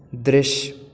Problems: background sounds at intervals